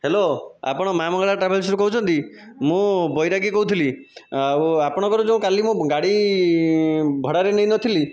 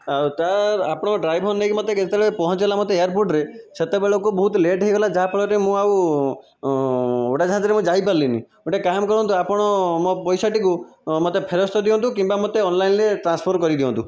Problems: constant background noise